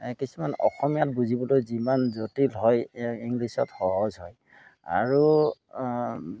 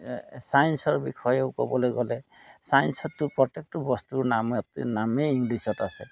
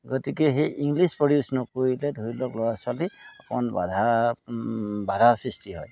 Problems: background sounds at intervals